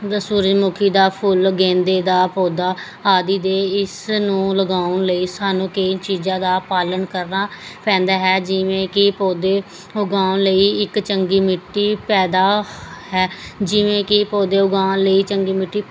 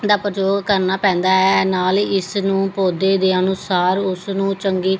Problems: none marked